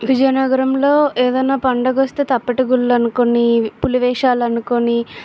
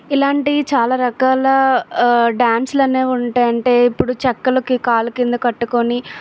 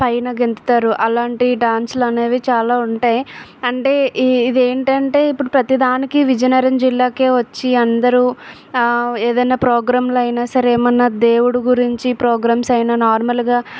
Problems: background sounds at intervals